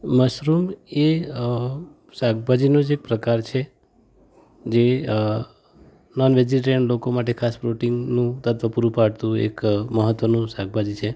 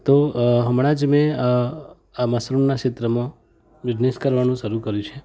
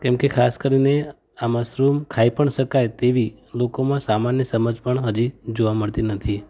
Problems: background sounds at intervals